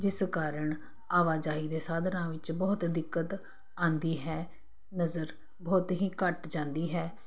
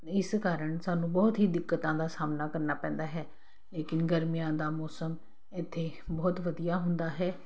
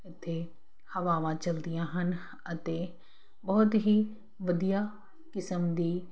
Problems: constant background noise